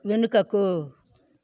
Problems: none marked